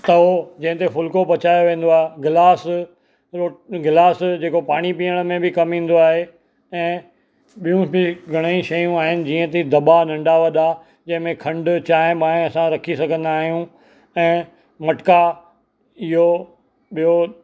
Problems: constant background noise